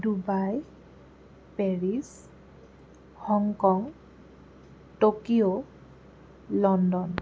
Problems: none marked